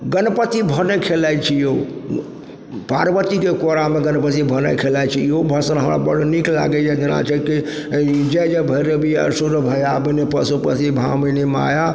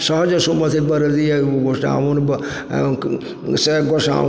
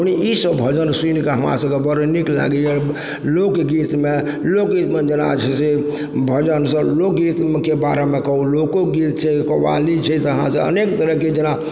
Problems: background sounds at intervals